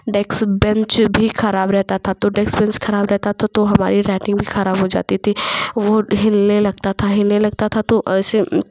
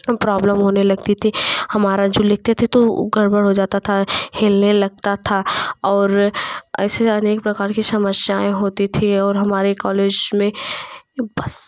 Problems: none marked